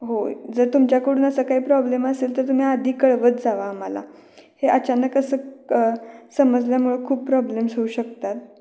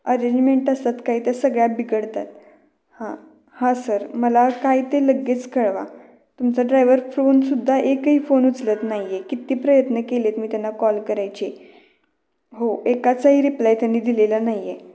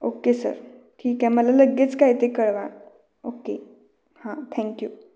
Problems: none marked